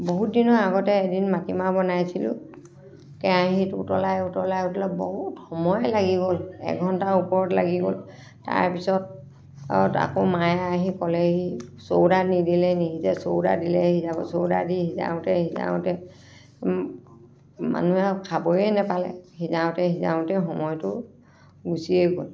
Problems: background sounds at intervals, continuous background conversations